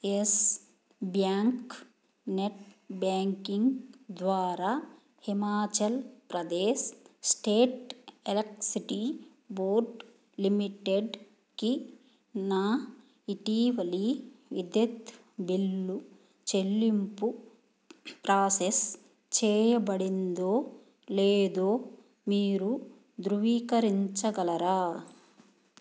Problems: none marked